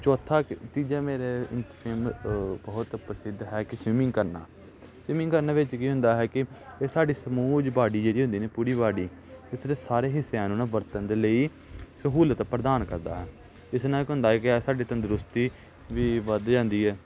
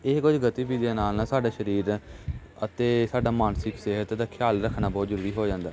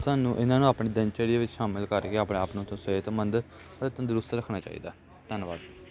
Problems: constant background noise, background conversations at intervals